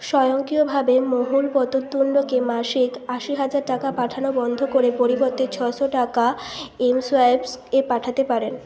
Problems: constant background noise